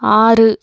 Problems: none marked